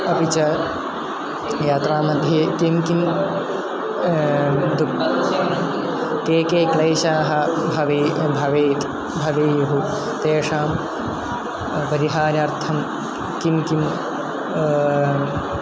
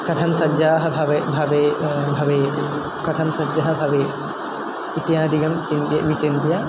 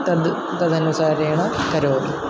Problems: constant background noise, low volume